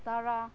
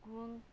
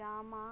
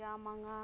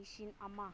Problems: background sounds at intervals